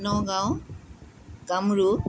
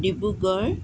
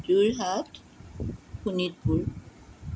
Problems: background sounds at intervals